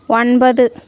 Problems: none marked